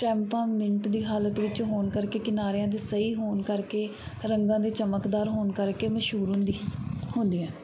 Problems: background sounds at intervals